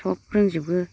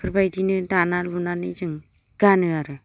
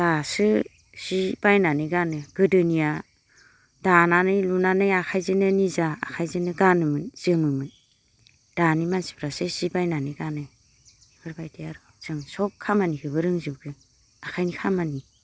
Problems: low volume